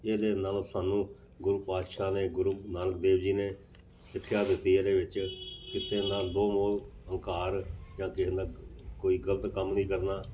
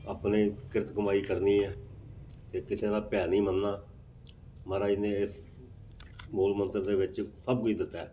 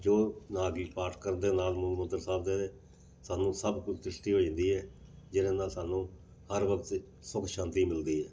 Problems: background sounds at intervals